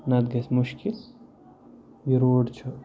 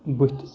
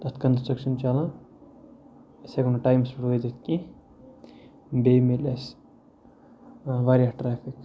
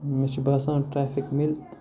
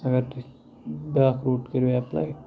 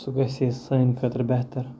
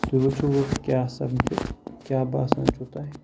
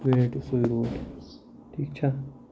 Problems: background sounds at intervals, low volume